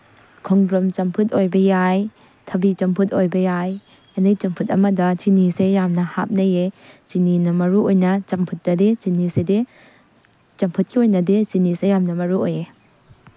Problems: constant background noise